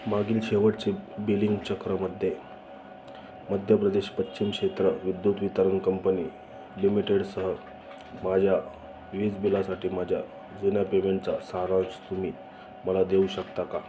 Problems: constant background noise, echo